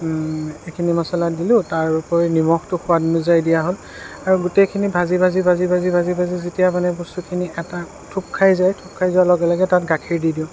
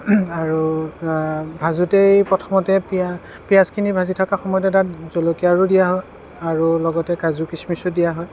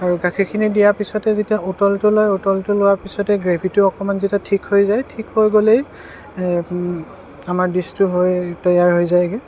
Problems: constant background noise